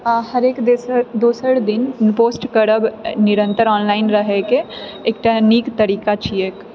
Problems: background sounds at intervals